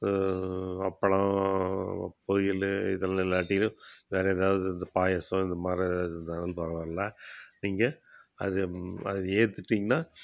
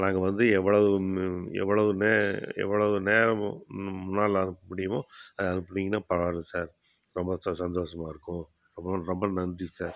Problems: none marked